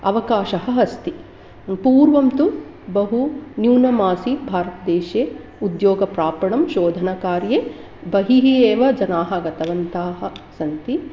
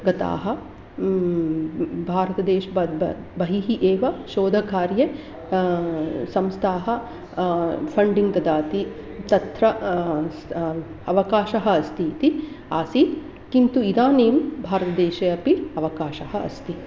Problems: background sounds at intervals